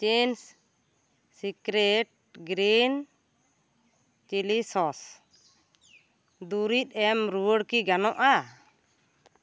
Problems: none marked